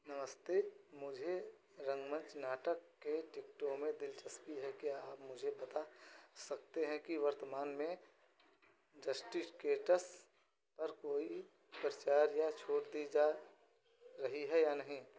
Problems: none marked